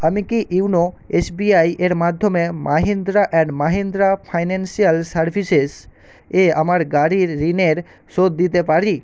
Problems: none marked